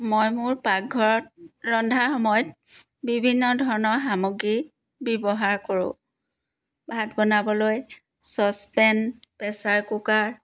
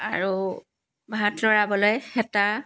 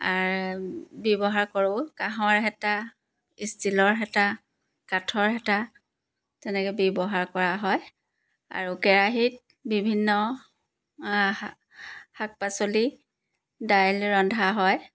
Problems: background sounds at intervals